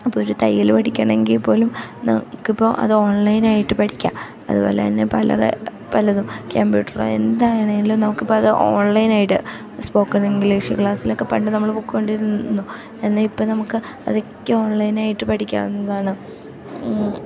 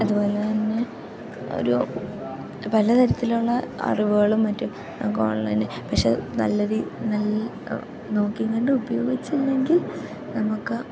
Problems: constant background noise, low volume